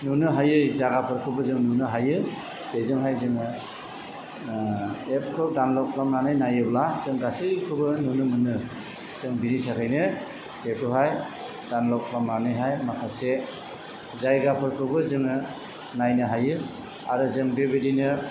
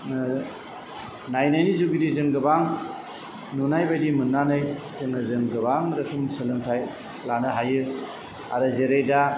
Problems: constant background noise